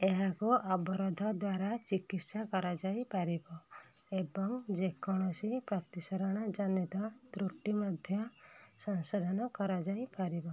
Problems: low volume